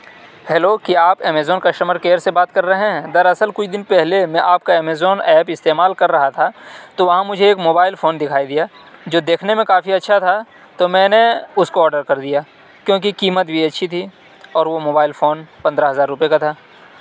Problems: background sounds at intervals